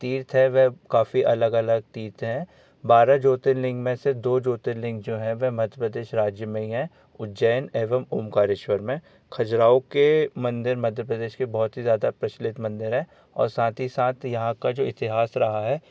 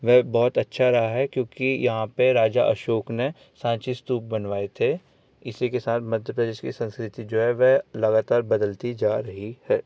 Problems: none marked